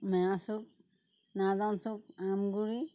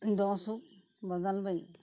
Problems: constant background noise